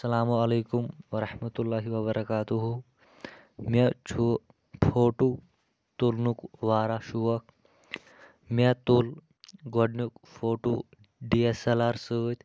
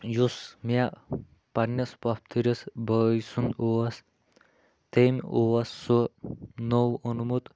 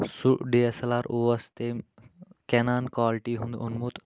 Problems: constant background noise